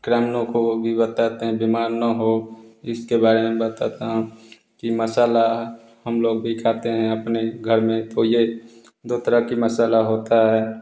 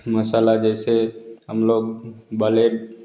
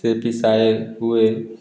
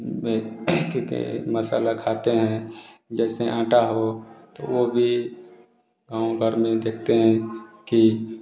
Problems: constant background noise